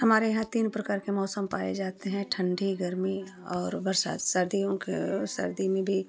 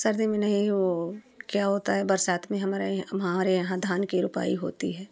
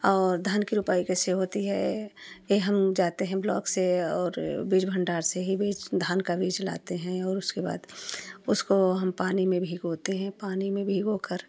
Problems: constant background noise